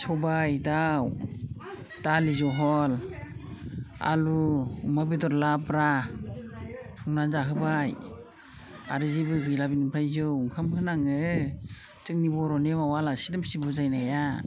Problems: constant background noise